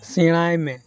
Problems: constant background noise, background conversations at intervals